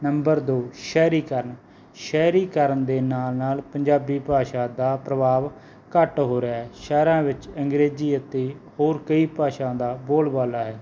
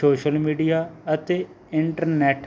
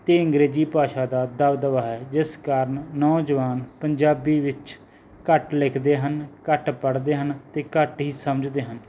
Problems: none marked